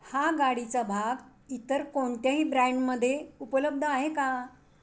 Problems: background sounds at intervals